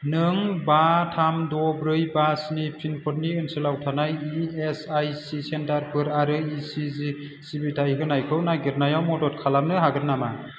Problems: constant background noise